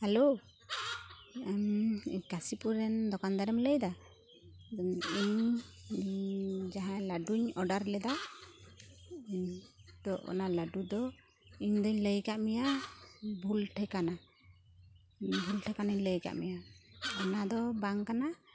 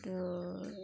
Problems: constant background noise